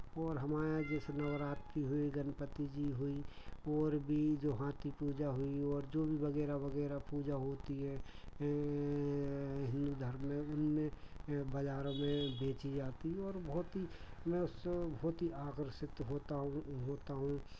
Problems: none marked